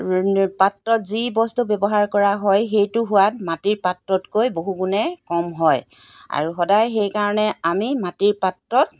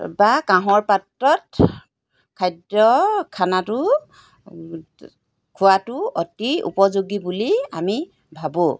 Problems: background sounds at intervals